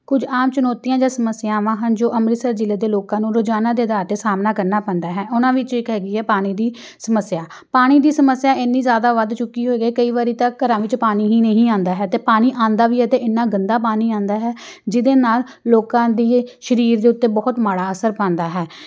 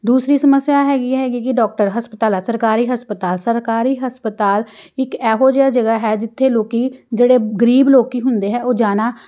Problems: none marked